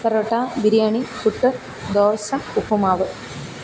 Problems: constant background noise, low volume